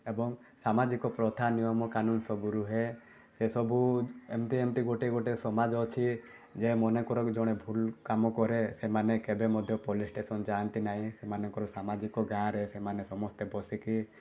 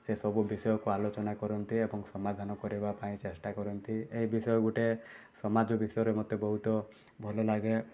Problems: background sounds at intervals